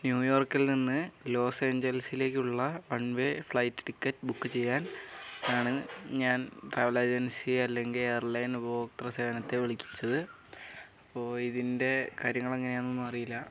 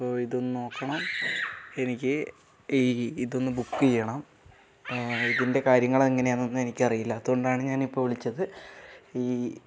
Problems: none marked